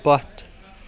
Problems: constant background noise, continuous background conversations